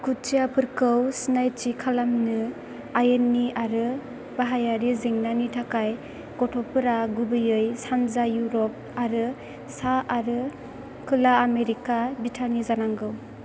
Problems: constant background noise